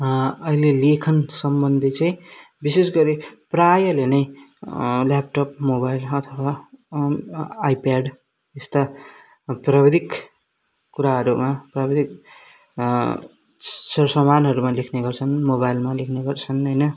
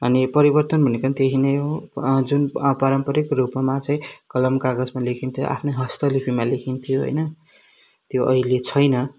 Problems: background sounds at intervals